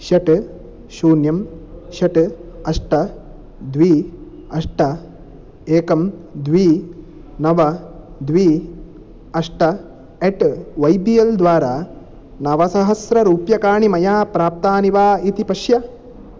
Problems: none marked